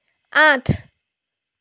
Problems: none marked